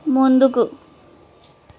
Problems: none marked